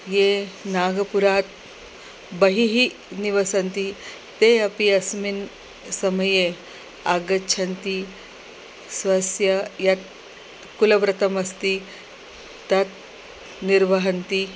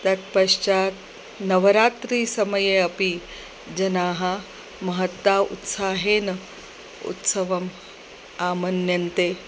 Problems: none marked